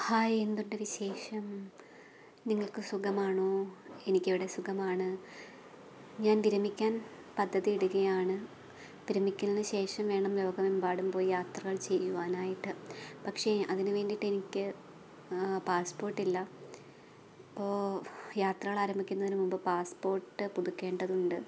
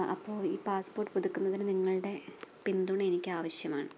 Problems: constant background noise